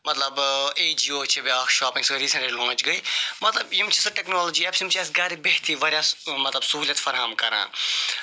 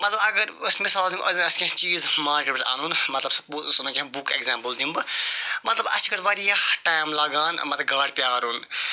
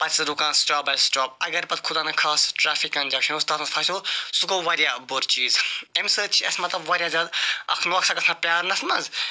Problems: constant background noise